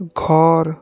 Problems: none marked